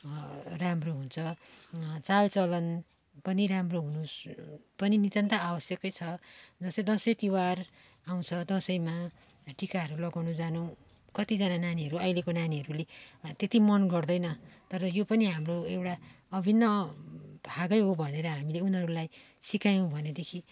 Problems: background sounds at intervals, background conversations at intervals